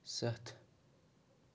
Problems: none marked